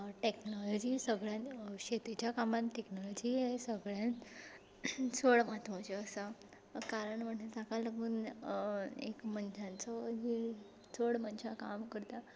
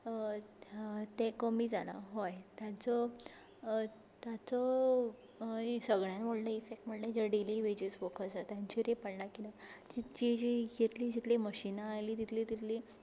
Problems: background sounds at intervals, low volume